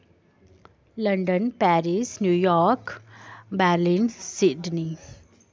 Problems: constant background noise